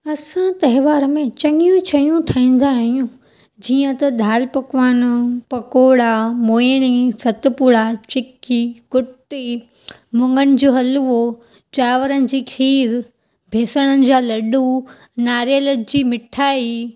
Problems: none marked